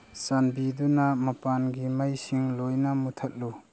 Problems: constant background noise